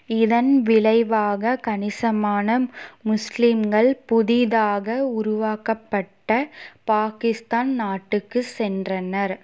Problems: none marked